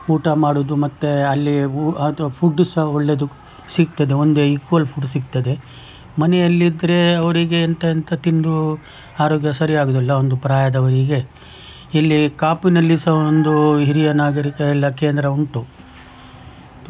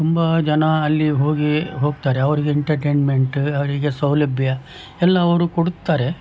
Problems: background sounds at intervals